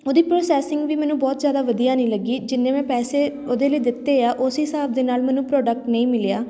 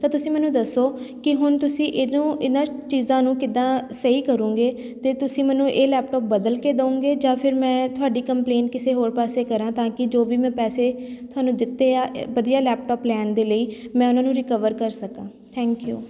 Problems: background sounds at intervals